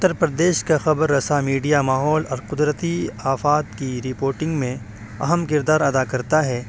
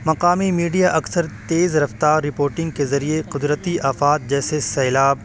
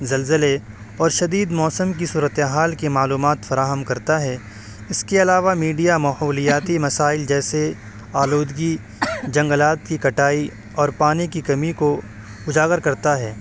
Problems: constant background noise